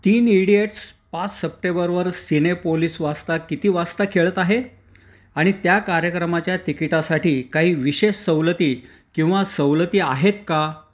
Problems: background sounds at intervals